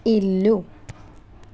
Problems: none marked